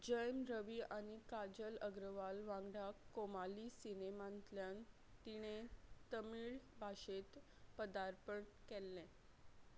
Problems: none marked